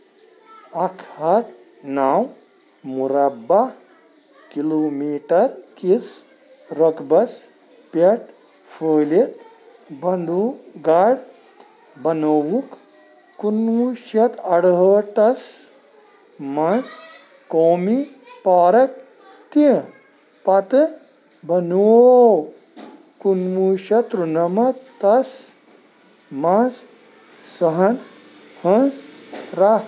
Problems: constant background noise